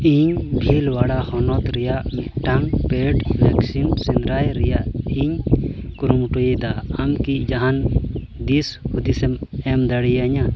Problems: constant background noise